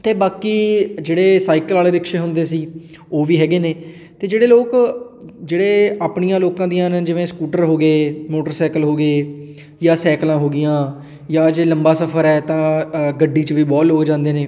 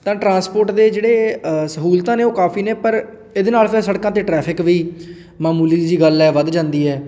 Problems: background sounds at intervals